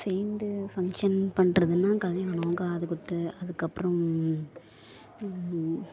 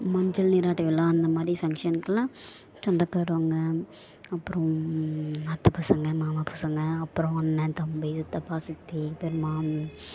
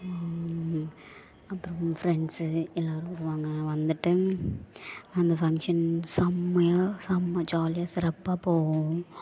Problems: background sounds at intervals